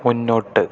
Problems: none marked